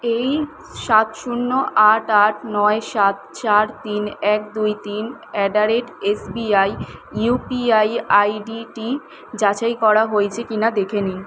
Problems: constant background noise